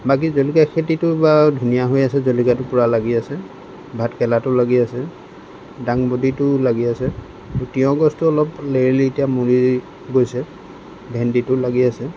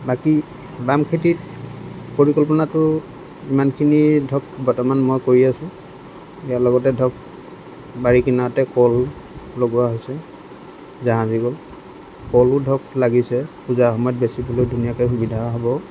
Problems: constant background noise